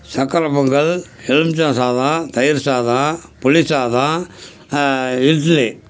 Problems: constant background noise